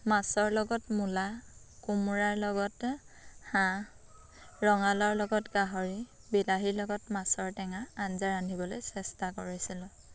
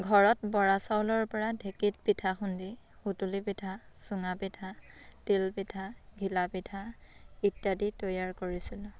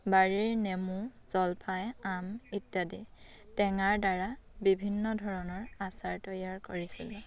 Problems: constant background noise